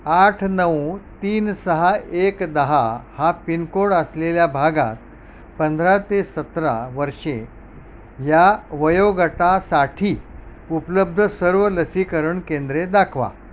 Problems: background sounds at intervals